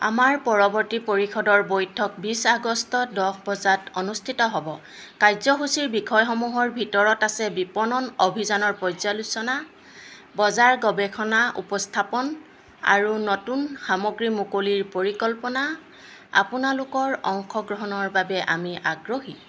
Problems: constant background noise